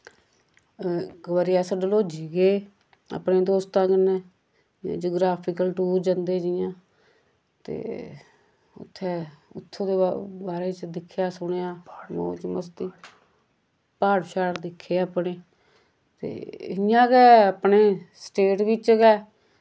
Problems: constant background noise